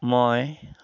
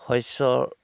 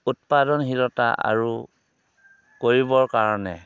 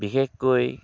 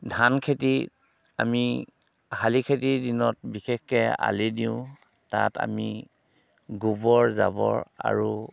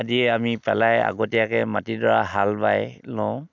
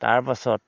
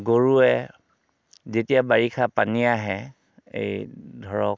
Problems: constant background noise